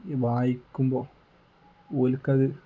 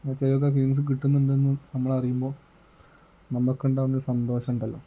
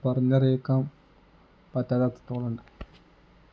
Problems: low volume